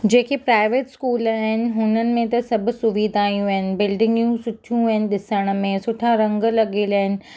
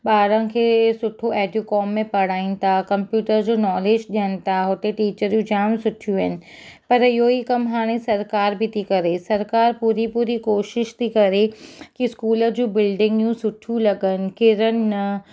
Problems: none marked